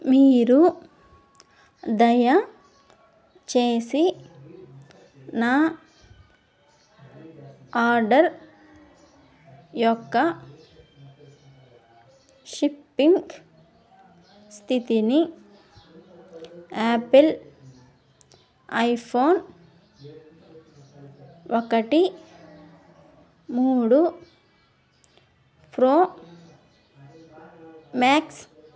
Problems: background sounds at intervals, background conversations at intervals